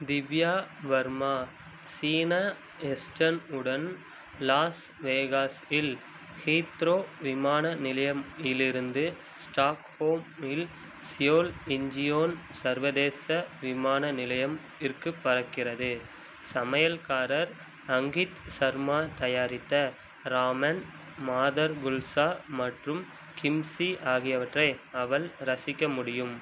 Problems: constant background noise